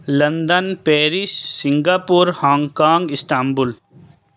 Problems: none marked